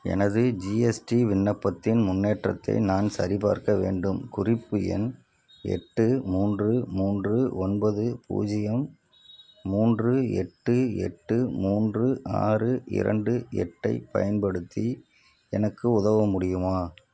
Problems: none marked